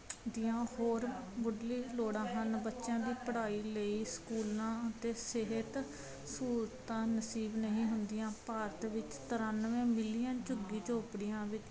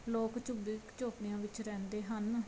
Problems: none marked